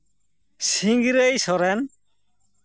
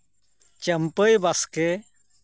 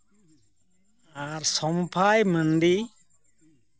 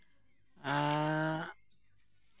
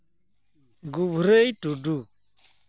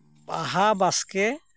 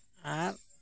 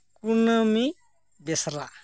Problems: none marked